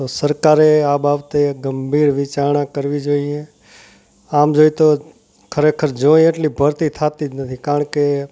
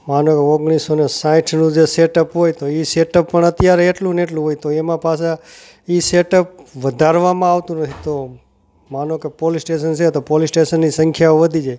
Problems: none marked